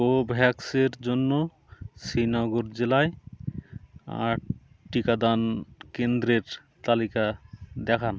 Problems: none marked